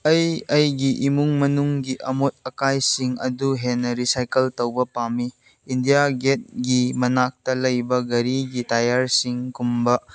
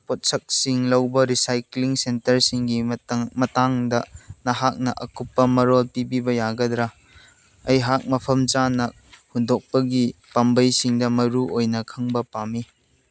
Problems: none marked